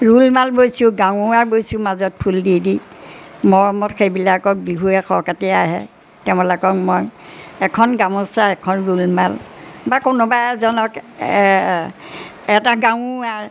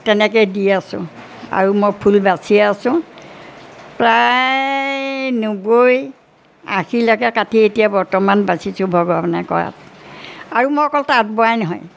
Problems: background sounds at intervals